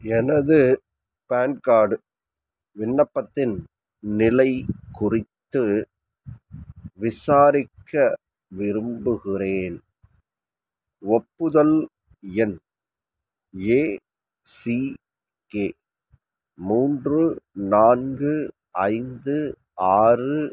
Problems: background sounds at intervals, background conversations at intervals